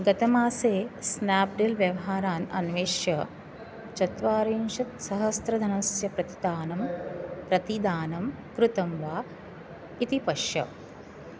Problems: background sounds at intervals